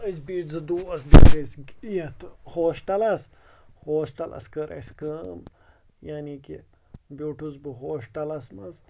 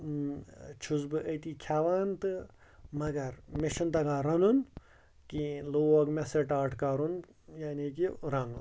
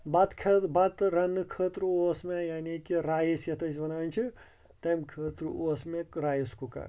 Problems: constant background noise